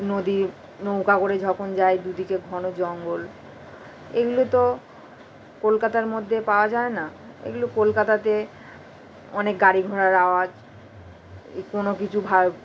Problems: constant background noise